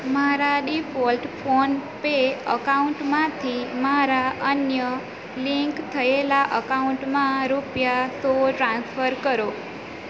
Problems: constant background noise